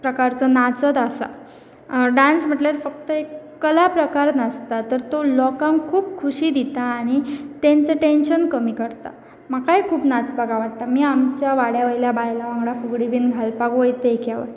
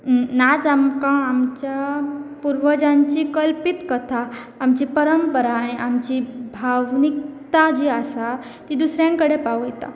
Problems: constant background noise